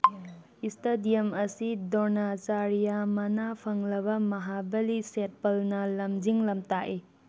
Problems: background sounds at intervals